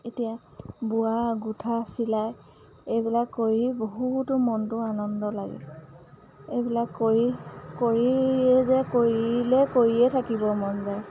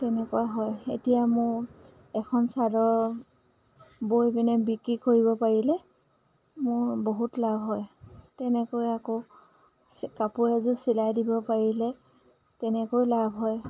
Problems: background sounds at intervals